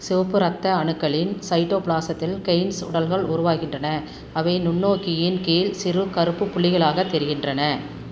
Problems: constant background noise